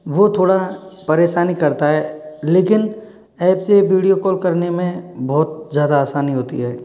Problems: background sounds at intervals